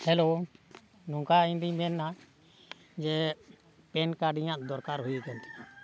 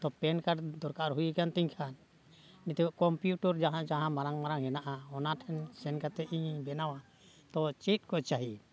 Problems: background sounds at intervals, background conversations at intervals